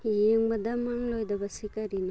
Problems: none marked